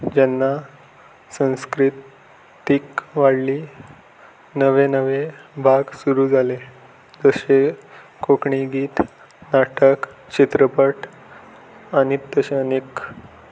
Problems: background sounds at intervals